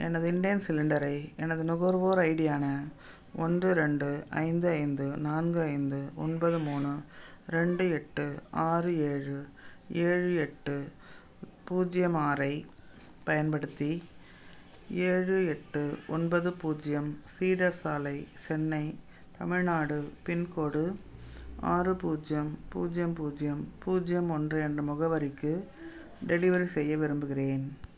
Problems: none marked